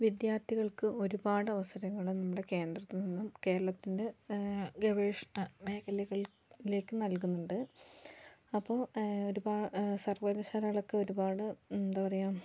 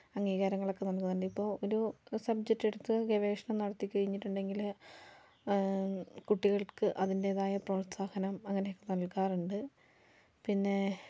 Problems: low volume